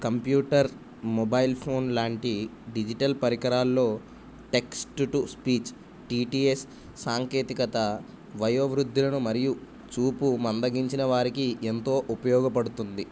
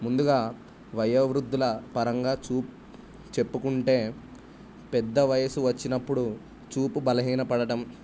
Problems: none marked